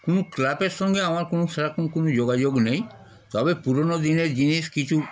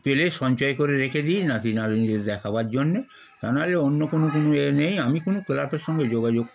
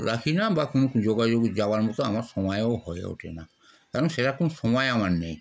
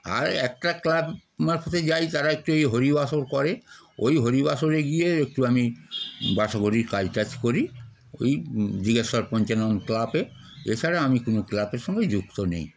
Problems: none marked